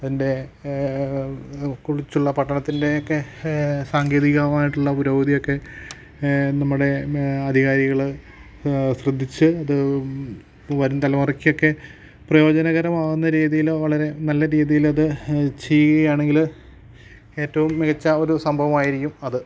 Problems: low volume